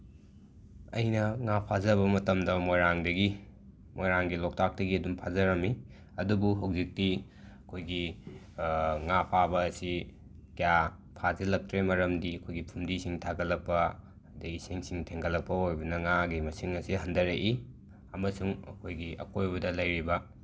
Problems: background sounds at intervals